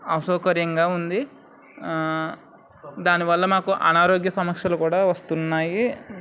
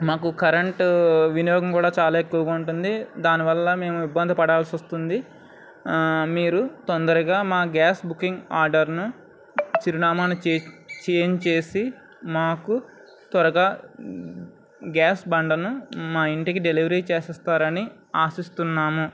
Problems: none marked